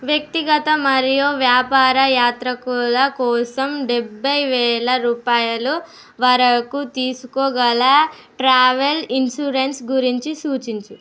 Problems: none marked